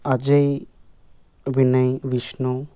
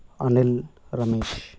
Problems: none marked